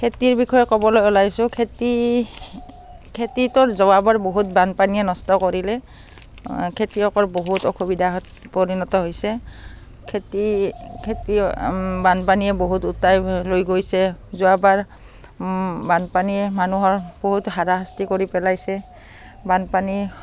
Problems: background sounds at intervals, background conversations at intervals